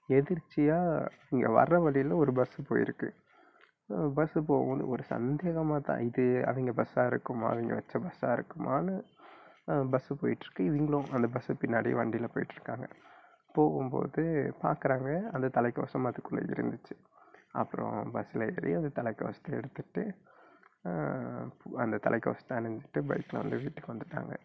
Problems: low volume